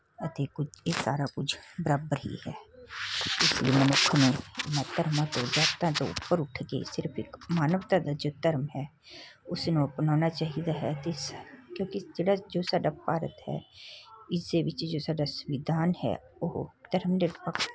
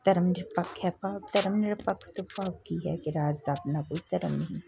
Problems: constant background noise